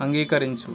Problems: constant background noise